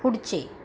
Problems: background sounds at intervals